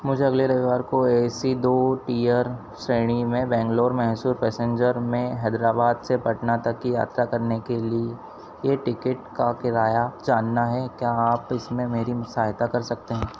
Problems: constant background noise